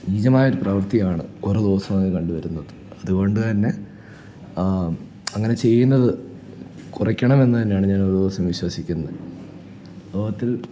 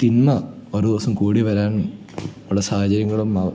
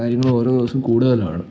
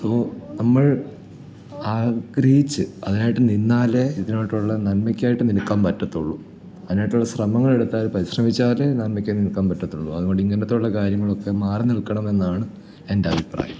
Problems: none marked